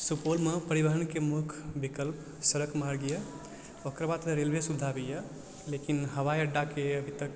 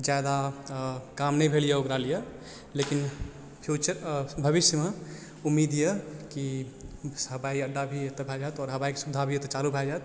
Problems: background sounds at intervals, background conversations at intervals, low volume